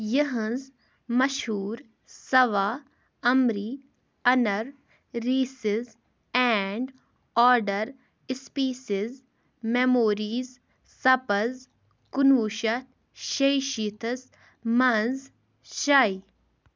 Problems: background sounds at intervals